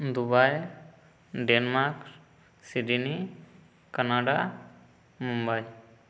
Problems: background sounds at intervals, echo